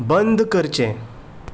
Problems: background sounds at intervals